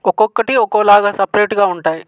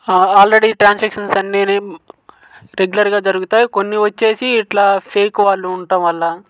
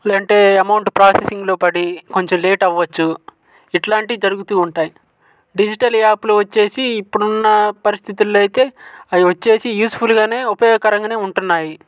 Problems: none marked